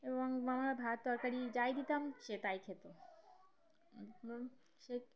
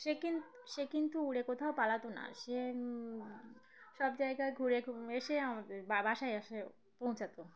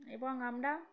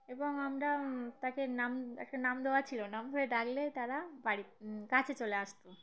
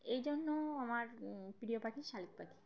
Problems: background sounds at intervals, continuous background conversations